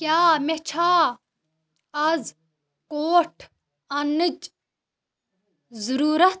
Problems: none marked